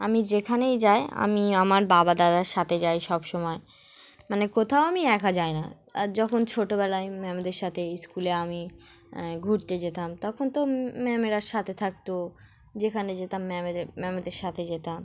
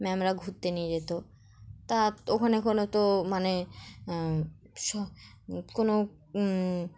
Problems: none marked